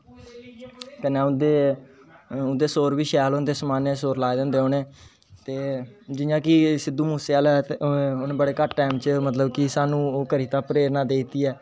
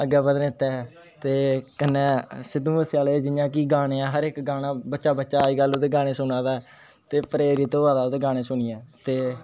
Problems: constant background noise